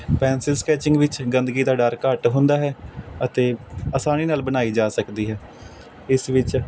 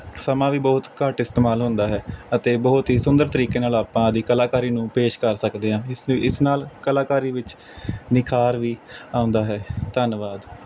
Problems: none marked